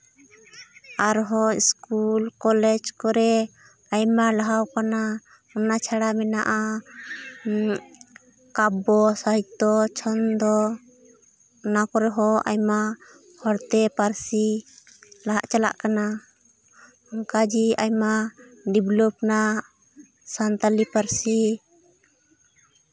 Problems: background sounds at intervals